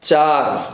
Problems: none marked